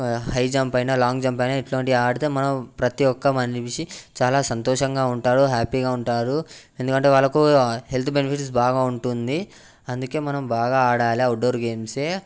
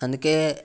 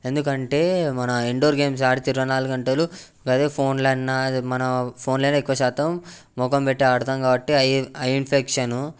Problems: background sounds at intervals